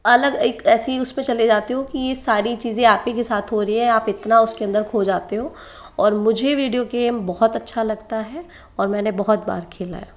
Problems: constant background noise